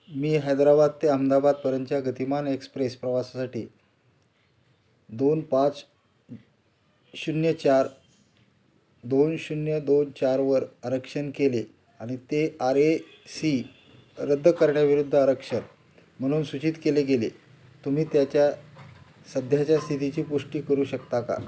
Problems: constant background noise, background conversations at intervals